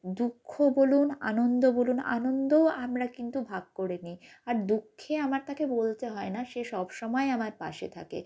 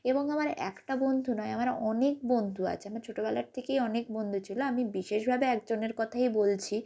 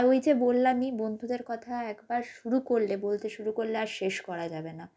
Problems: constant background noise